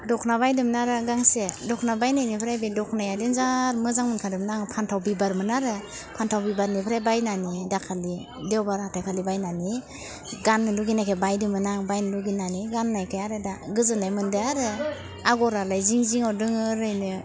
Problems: constant background noise